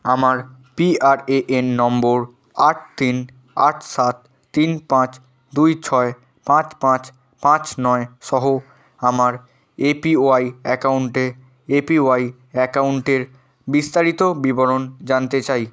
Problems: none marked